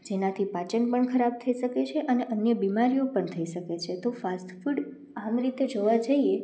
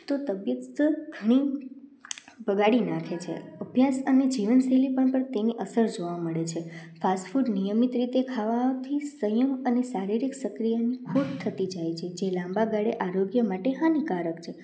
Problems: none marked